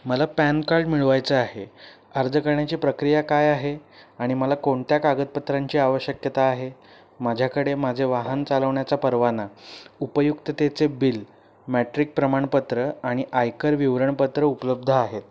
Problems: none marked